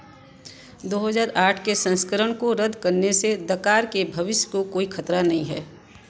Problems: constant background noise